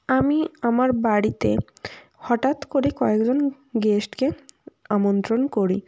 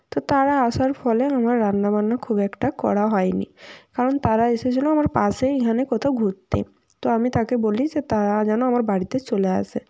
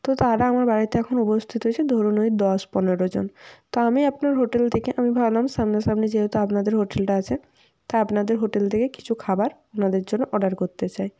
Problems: none marked